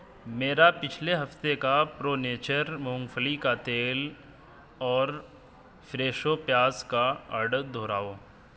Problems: constant background noise